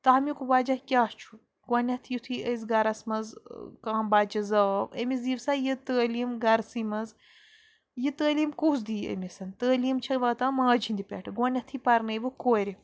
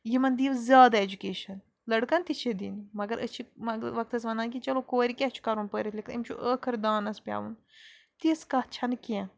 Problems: background sounds at intervals